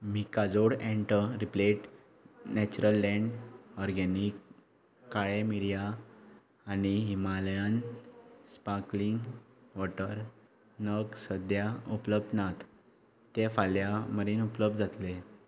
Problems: none marked